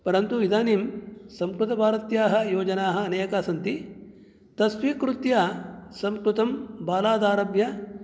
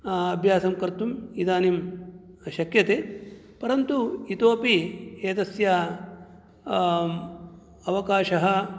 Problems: none marked